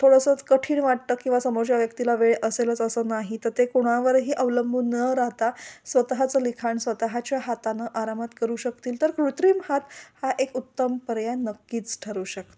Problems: none marked